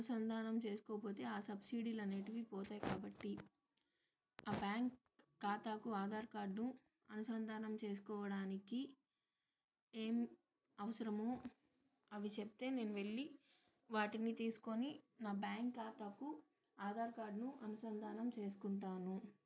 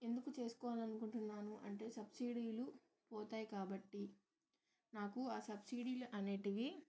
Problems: none marked